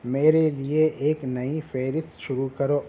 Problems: constant background noise